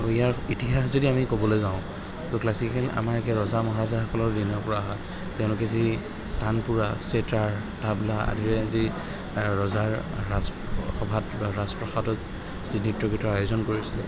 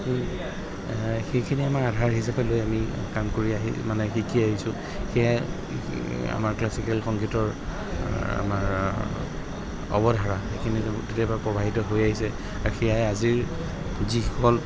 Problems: background sounds at intervals, background conversations at intervals